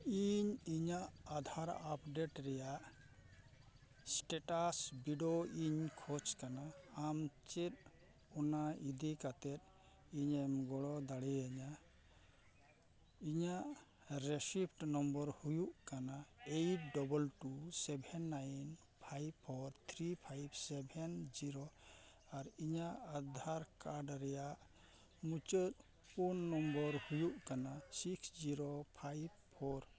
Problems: constant background noise, low volume